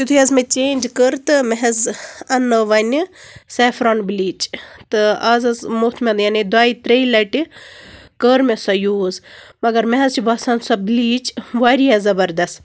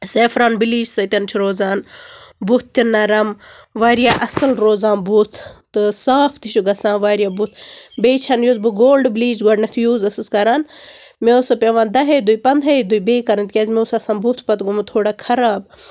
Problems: constant background noise